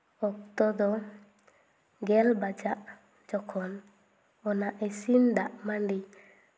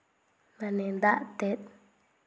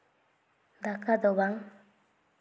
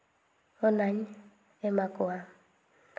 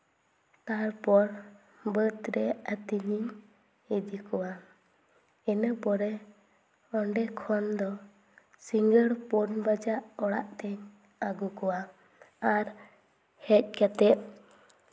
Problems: none marked